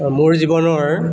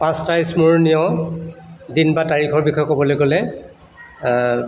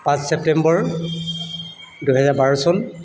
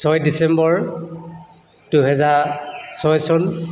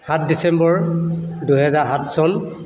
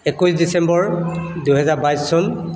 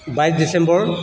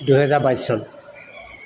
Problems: constant background noise, echo